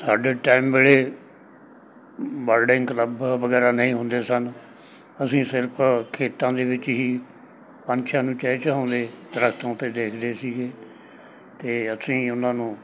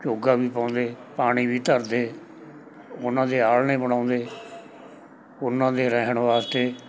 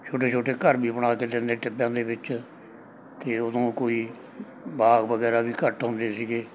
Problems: background sounds at intervals, background conversations at intervals